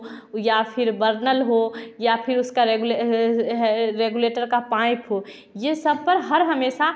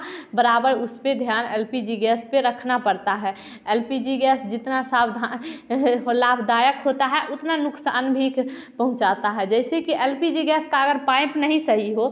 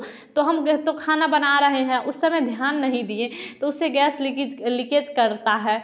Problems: background sounds at intervals, continuous background conversations, echo